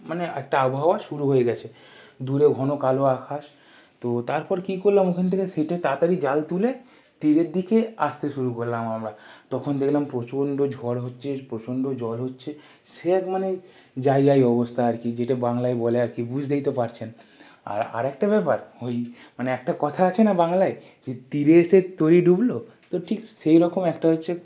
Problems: background sounds at intervals